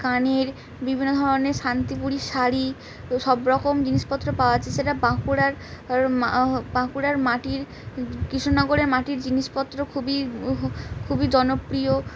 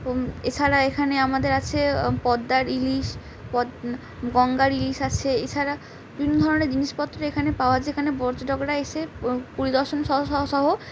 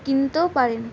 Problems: none marked